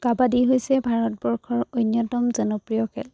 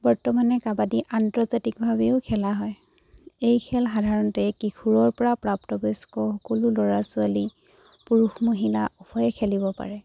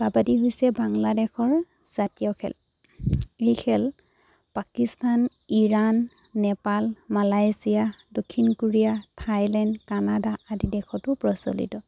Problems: none marked